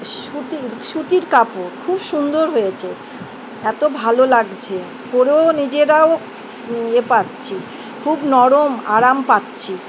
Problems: constant background noise